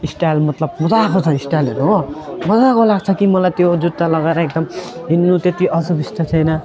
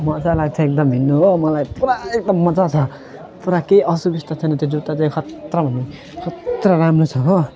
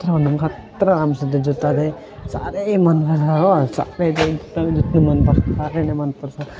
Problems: none marked